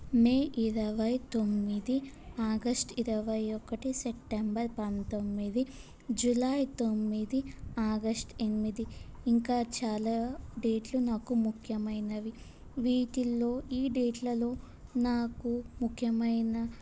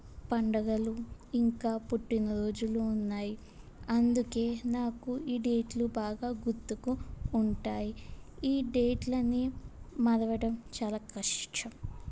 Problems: constant background noise